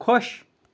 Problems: none marked